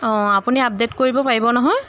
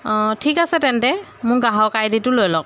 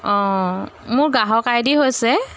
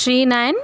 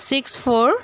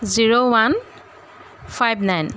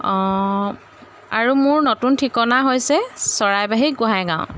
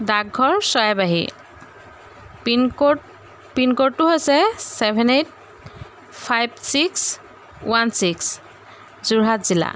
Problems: constant background noise